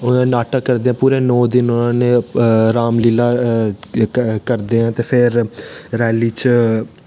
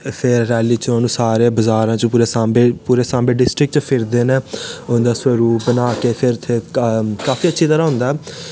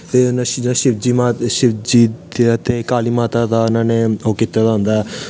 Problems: background sounds at intervals